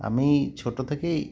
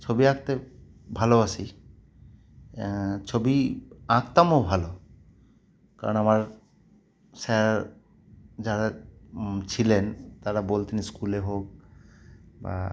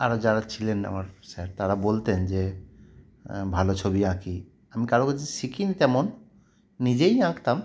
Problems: none marked